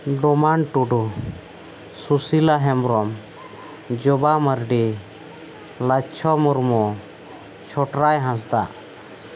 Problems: none marked